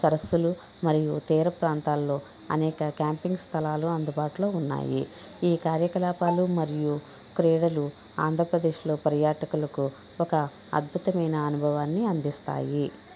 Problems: background sounds at intervals, background conversations at intervals